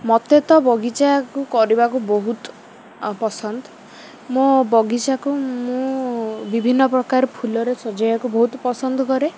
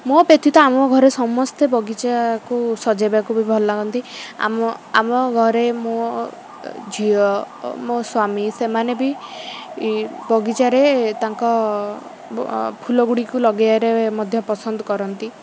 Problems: constant background noise